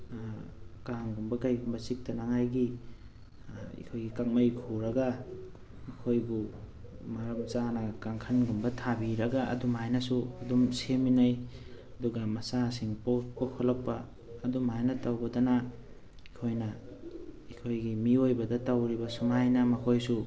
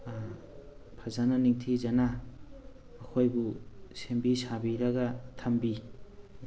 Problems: background sounds at intervals